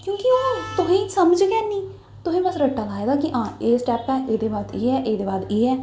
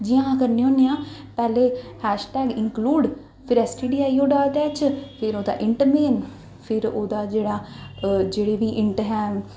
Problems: echo